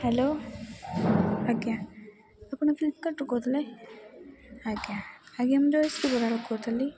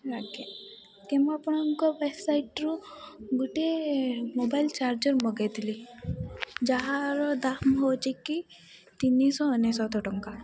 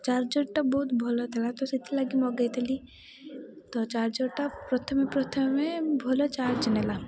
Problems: background sounds at intervals, low volume